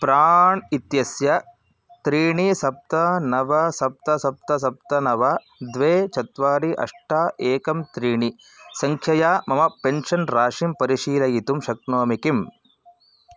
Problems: background sounds at intervals